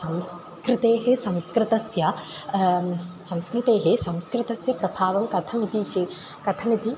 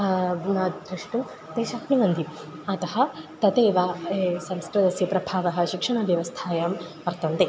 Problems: constant background noise